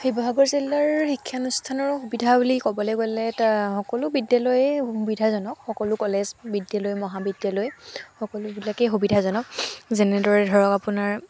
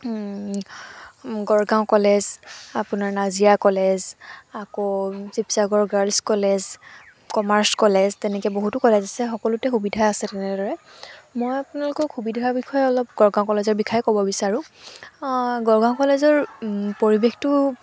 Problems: none marked